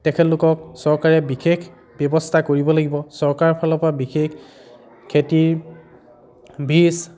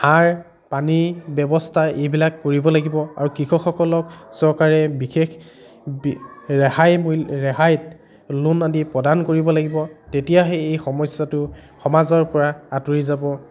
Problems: continuous background conversations